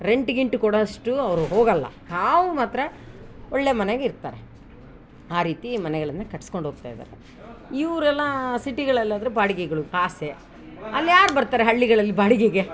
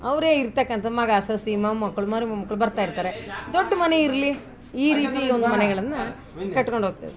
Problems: background sounds at intervals